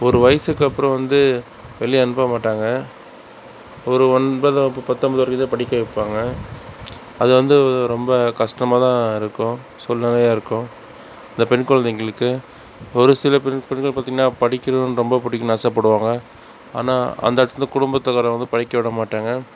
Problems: none marked